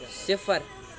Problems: constant background noise